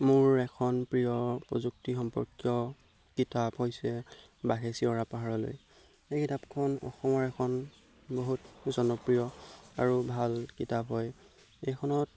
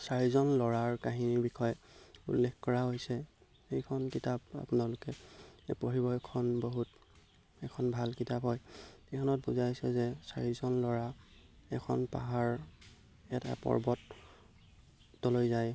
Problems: background sounds at intervals